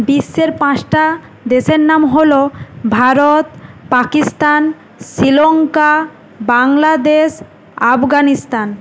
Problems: constant background noise